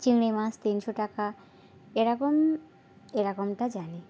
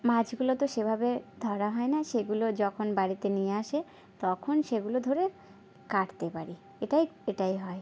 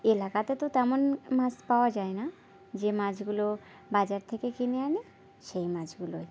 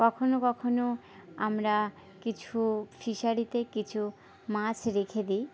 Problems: background sounds at intervals, background conversations at intervals